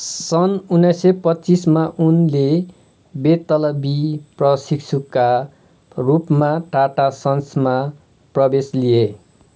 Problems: none marked